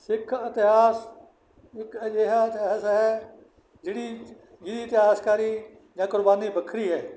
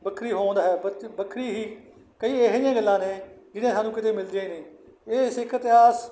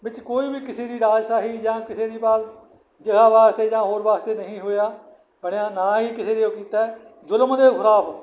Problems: background sounds at intervals